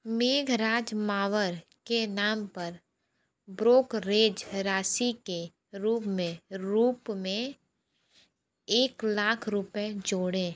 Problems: background sounds at intervals